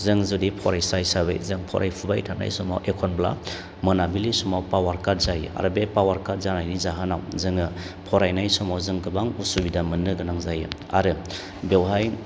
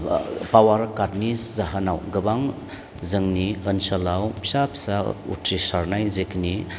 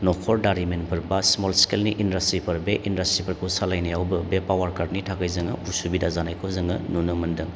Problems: none marked